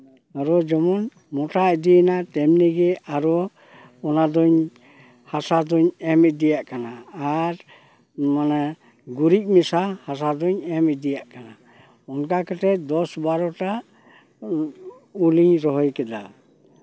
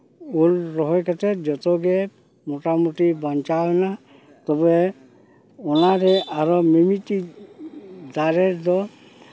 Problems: none marked